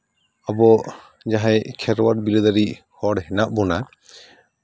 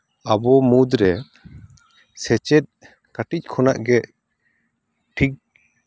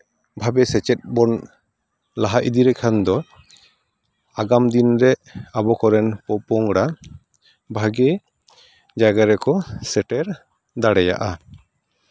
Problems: background conversations at intervals